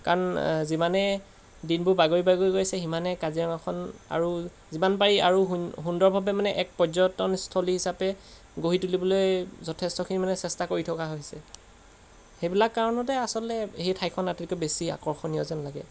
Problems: background sounds at intervals